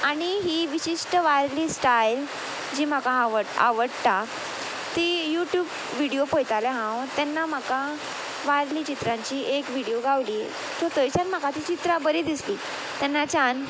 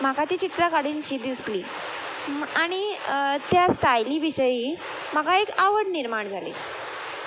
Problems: constant background noise